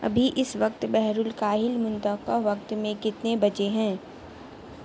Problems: constant background noise